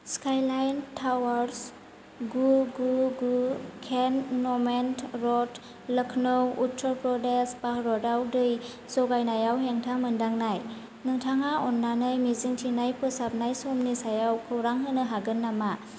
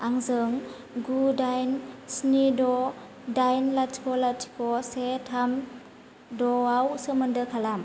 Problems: constant background noise